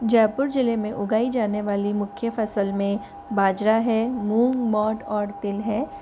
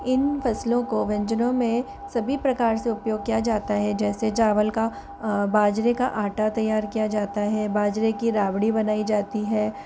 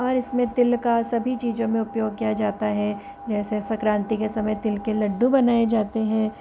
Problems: constant background noise